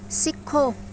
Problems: none marked